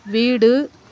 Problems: background sounds at intervals